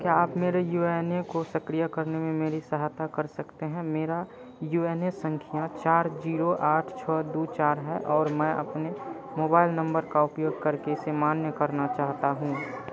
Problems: constant background noise